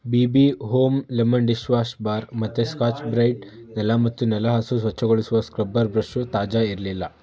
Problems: background conversations at intervals